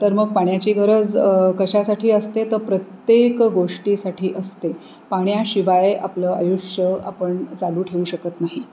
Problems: constant background noise